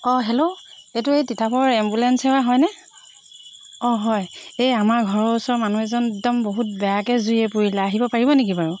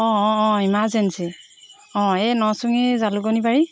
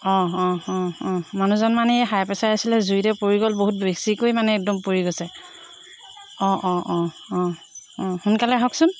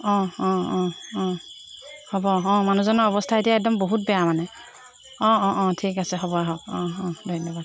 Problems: constant background noise